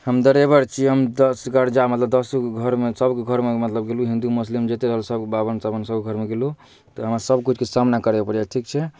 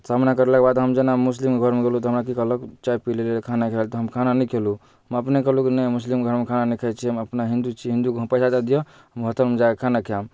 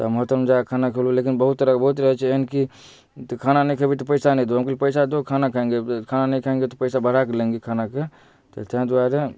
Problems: none marked